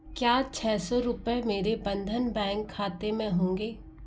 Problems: none marked